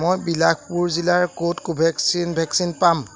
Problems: background sounds at intervals